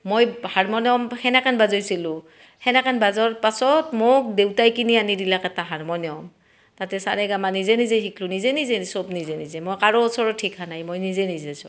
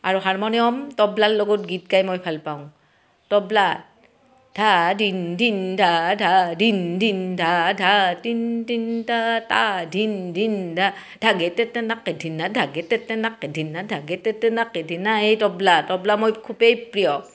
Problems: none marked